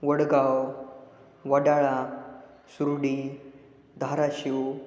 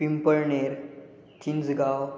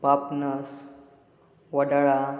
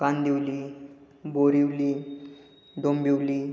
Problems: constant background noise